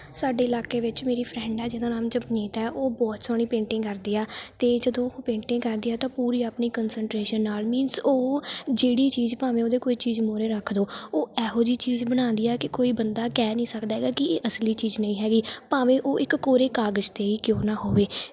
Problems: background sounds at intervals